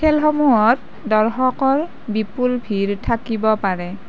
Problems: constant background noise